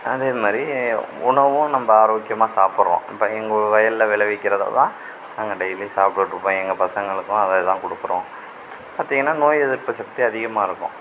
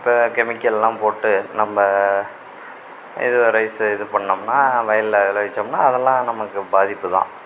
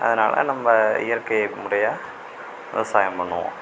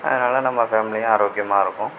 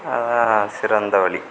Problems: none marked